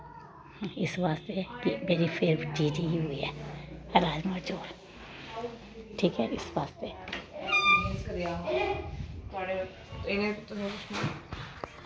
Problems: none marked